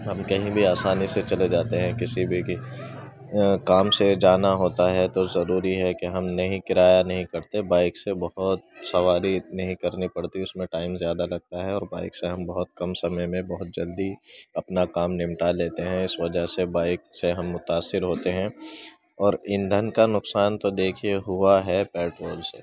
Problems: continuous background conversations, low volume